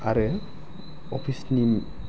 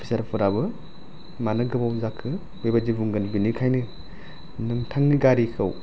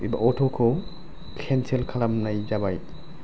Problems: low volume